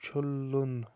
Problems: constant background noise